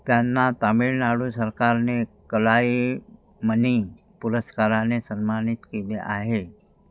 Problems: background sounds at intervals